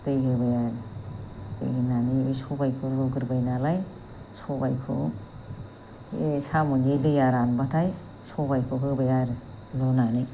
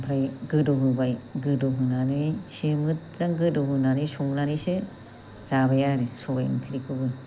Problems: low volume